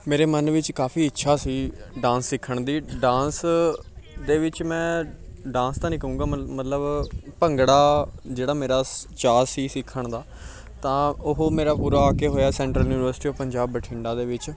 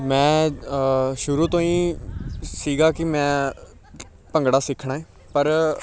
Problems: background sounds at intervals